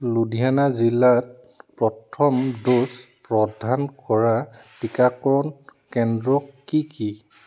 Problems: constant background noise